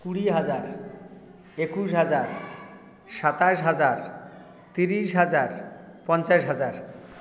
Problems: continuous background conversations